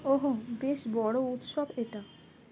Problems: none marked